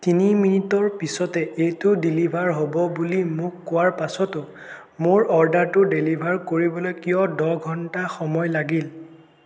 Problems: constant background noise, echo